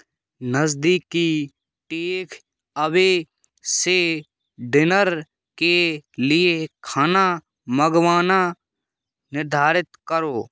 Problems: background sounds at intervals